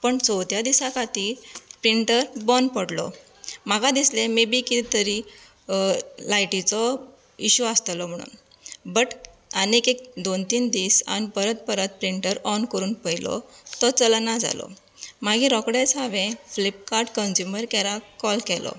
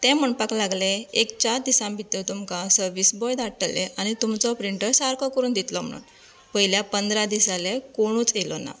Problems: none marked